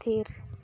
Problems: none marked